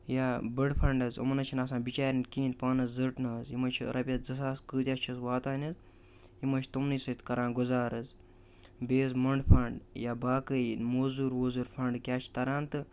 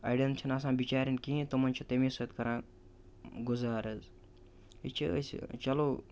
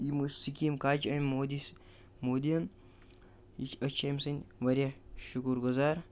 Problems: constant background noise